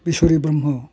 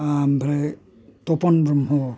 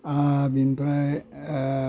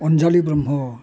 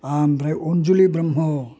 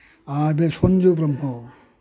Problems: constant background noise